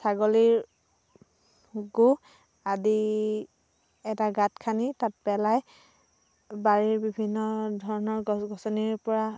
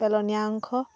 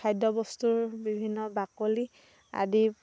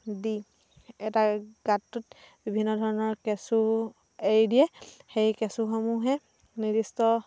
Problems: constant background noise